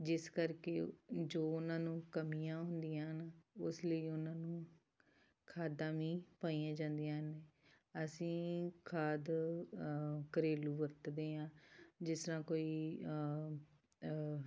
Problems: background sounds at intervals